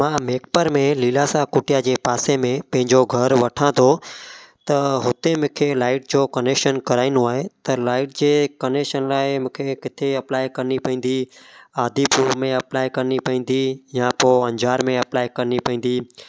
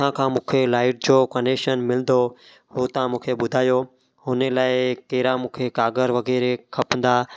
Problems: background sounds at intervals, echo